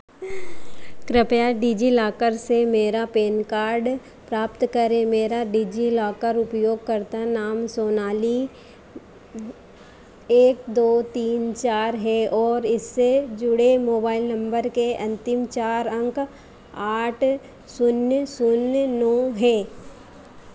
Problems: none marked